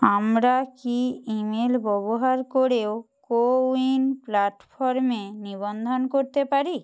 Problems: constant background noise